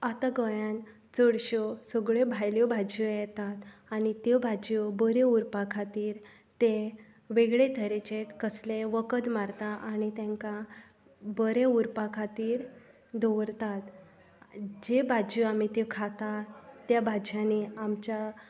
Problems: background conversations at intervals